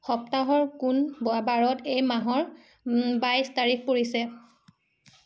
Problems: none marked